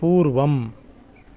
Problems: background sounds at intervals